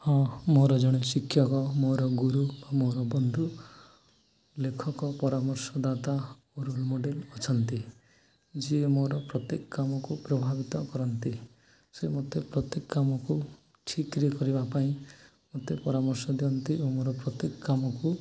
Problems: background conversations at intervals